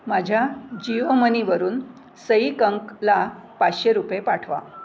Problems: none marked